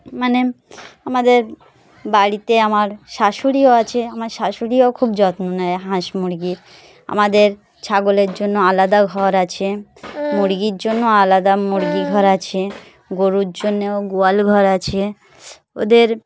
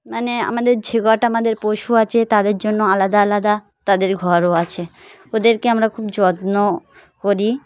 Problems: background sounds at intervals, continuous background conversations